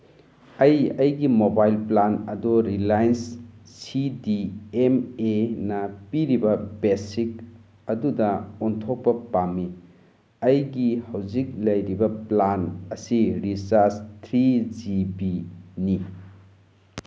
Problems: background sounds at intervals